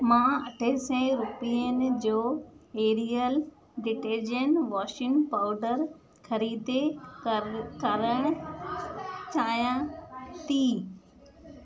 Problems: constant background noise, echo